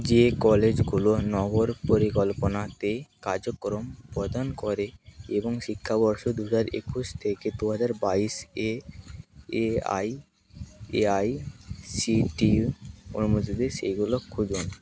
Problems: constant background noise